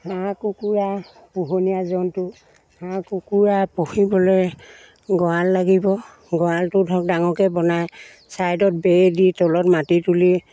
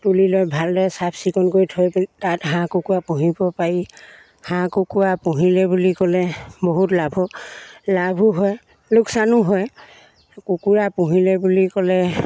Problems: none marked